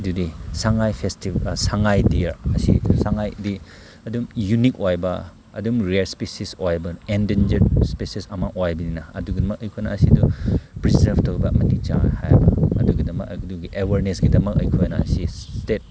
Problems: background sounds at intervals